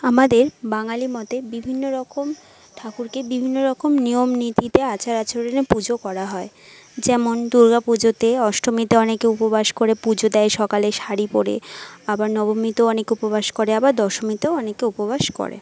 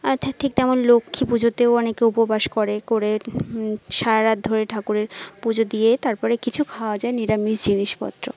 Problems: background conversations at intervals